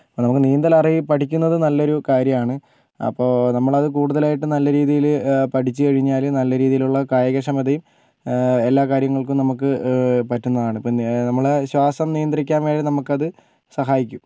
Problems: none marked